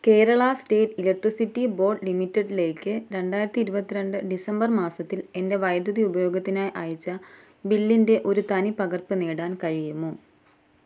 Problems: low volume